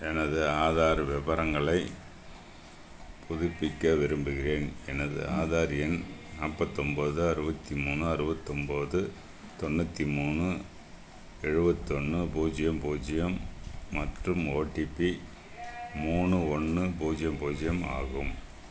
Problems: constant background noise